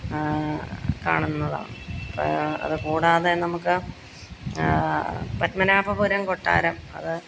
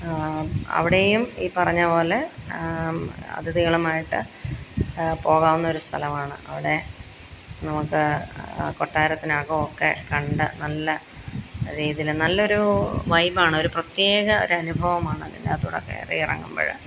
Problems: none marked